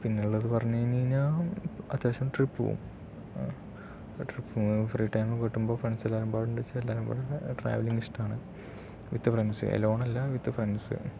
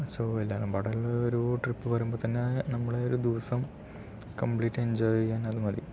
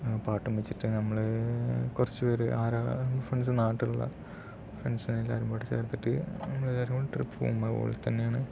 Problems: low volume